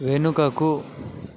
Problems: constant background noise